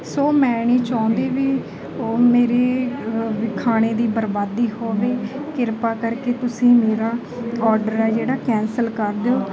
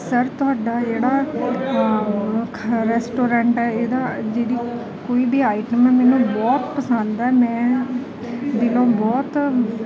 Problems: background sounds at intervals